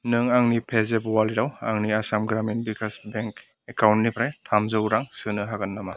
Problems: background sounds at intervals